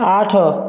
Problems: continuous background conversations